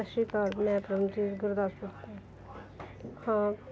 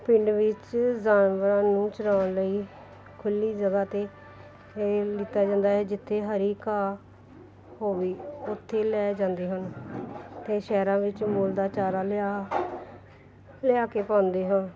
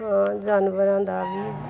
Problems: background sounds at intervals